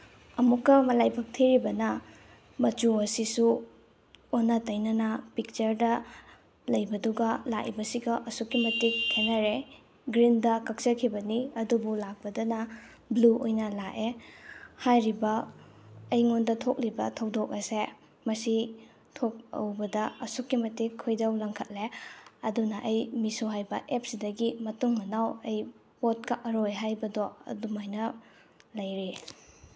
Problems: background sounds at intervals